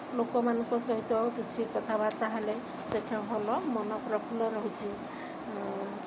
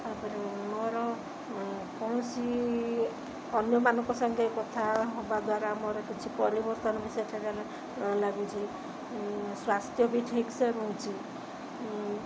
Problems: constant background noise